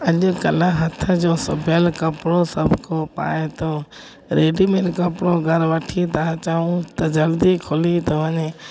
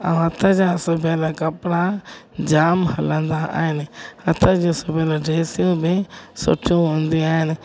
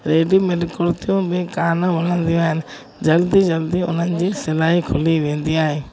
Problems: constant background noise